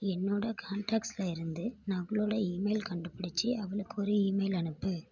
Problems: none marked